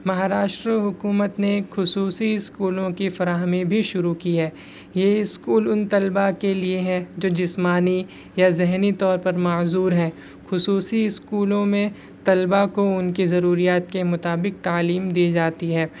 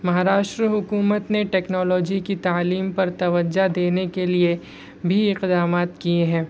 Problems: constant background noise